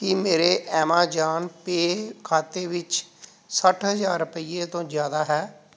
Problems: background sounds at intervals